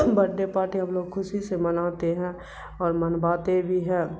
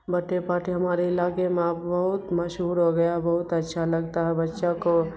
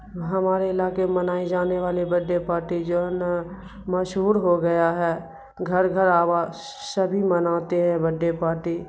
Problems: constant background noise